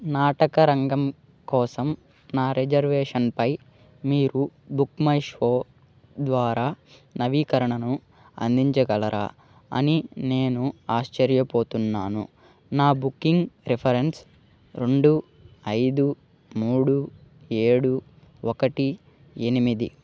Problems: none marked